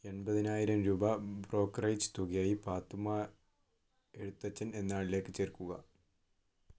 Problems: none marked